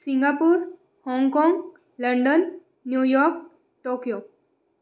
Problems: none marked